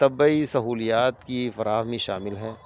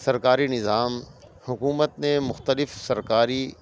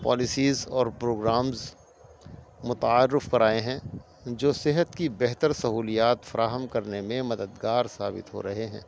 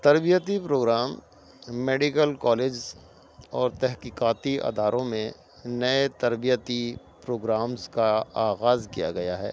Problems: constant background noise